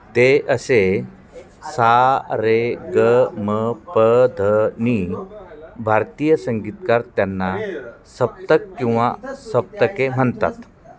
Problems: constant background noise, continuous background conversations